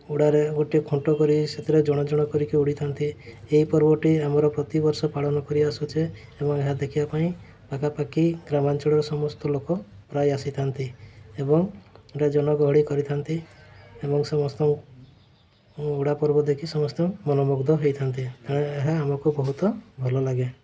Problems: constant background noise